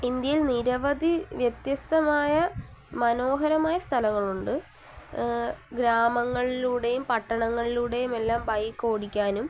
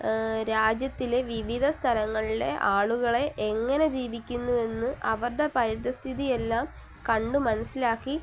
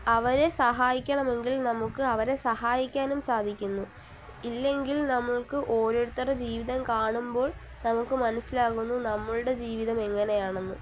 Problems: constant background noise, low volume